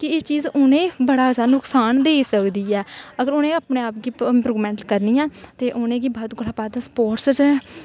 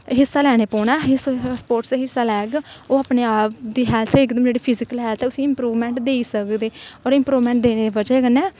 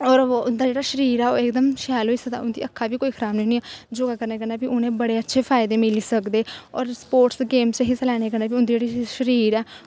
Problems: constant background noise